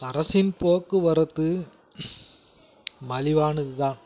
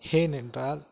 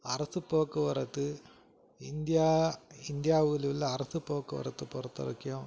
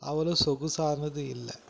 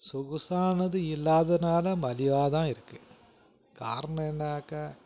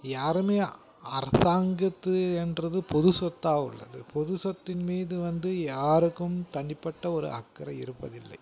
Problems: background sounds at intervals